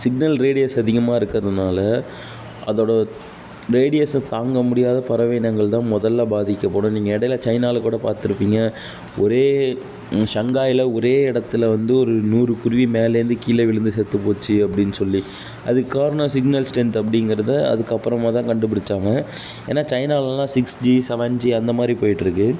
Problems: background sounds at intervals